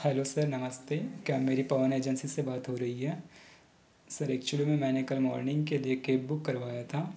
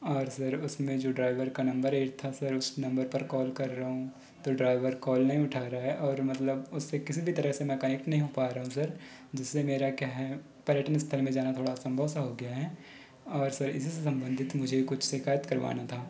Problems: background sounds at intervals